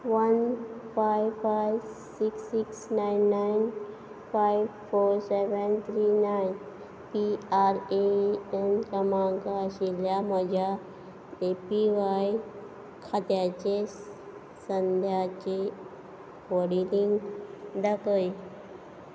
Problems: background sounds at intervals